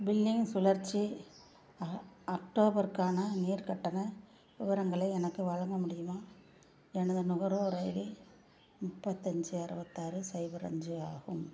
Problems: low volume